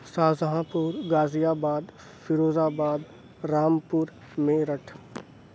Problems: none marked